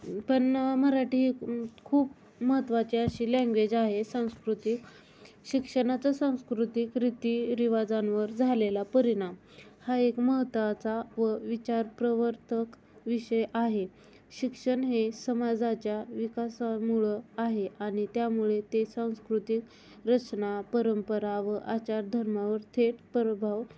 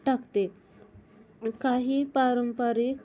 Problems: none marked